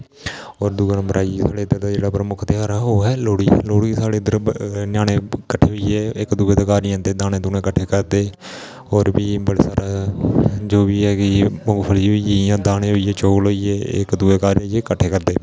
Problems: constant background noise